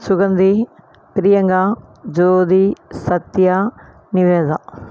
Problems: none marked